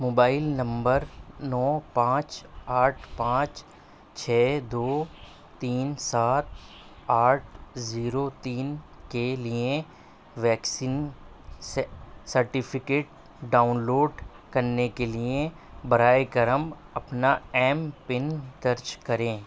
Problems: constant background noise